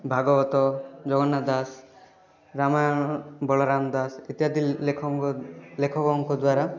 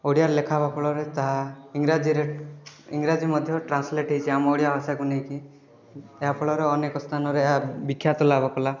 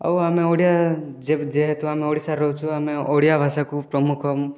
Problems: continuous background conversations